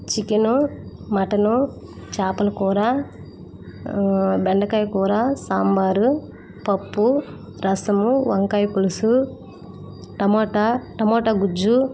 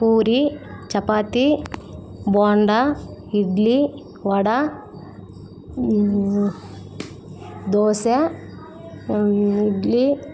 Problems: constant background noise